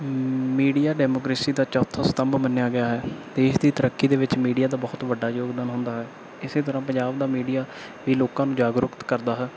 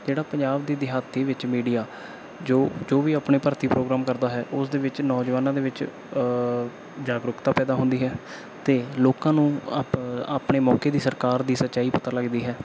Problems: background sounds at intervals